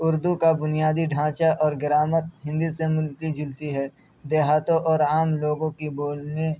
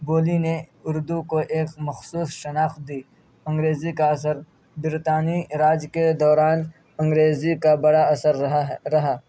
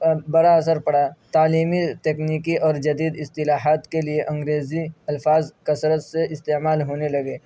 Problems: none marked